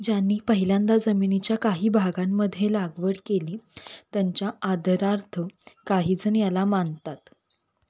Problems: constant background noise